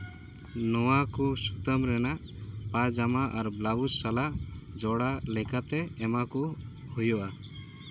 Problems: constant background noise